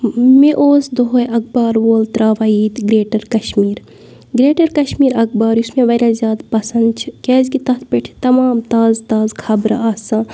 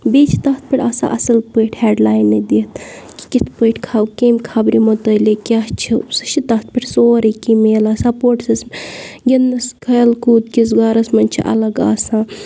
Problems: none marked